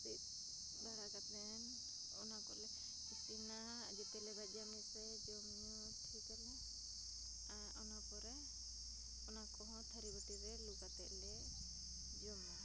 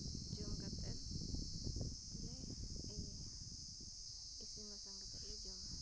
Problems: constant background noise, low volume